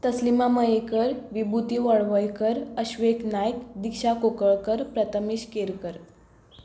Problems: background sounds at intervals